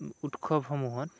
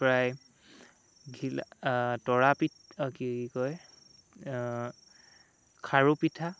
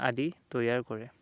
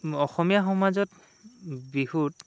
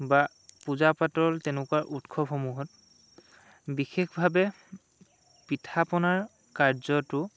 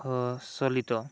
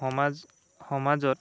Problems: none marked